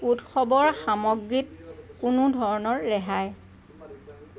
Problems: constant background noise